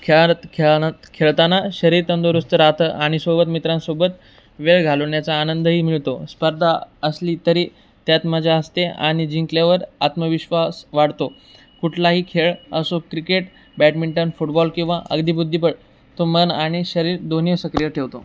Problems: background sounds at intervals